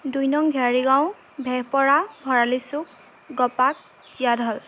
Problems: constant background noise